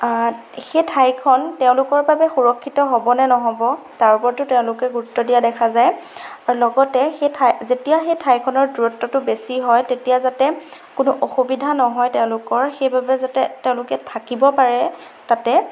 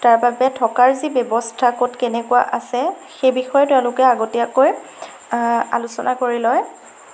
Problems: constant background noise